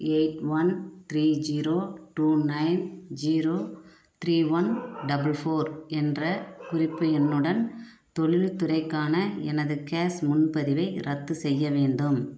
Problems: background sounds at intervals